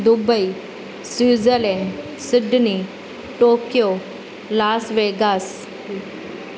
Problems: constant background noise, echo